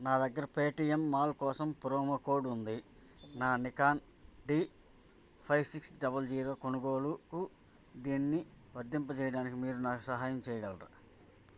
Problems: constant background noise, background conversations at intervals